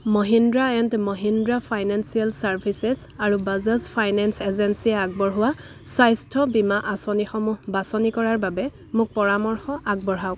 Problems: background sounds at intervals, background conversations at intervals